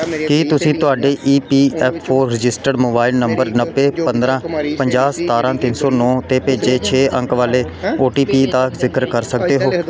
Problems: continuous background conversations